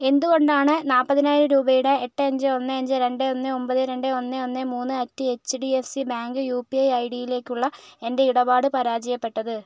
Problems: none marked